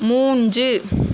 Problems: constant background noise